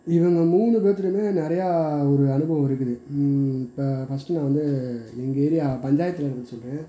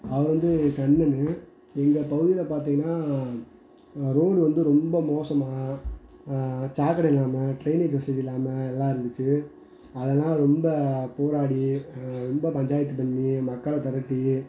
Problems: constant background noise